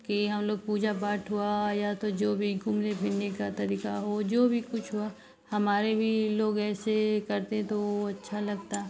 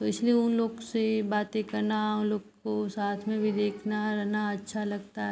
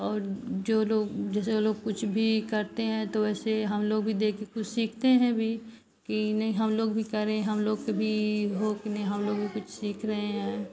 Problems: constant background noise